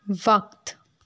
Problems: none marked